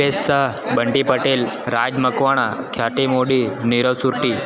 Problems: constant background noise